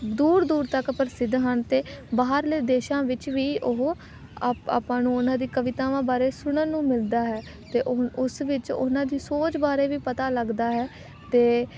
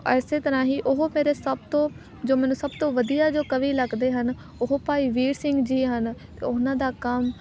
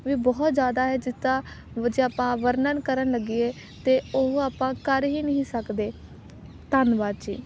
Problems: none marked